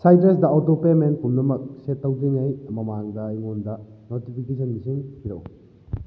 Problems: low volume